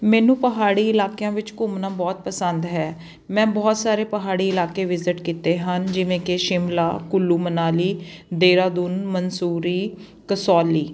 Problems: none marked